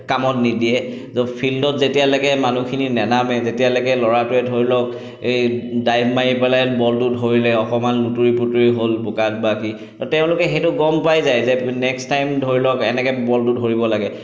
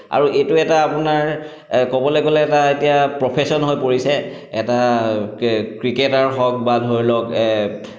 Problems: none marked